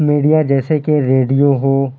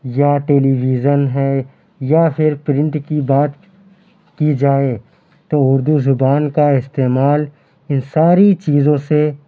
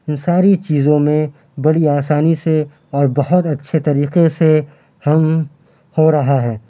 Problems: constant background noise